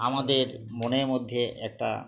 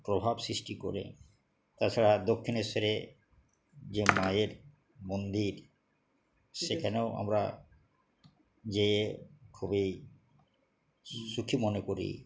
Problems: constant background noise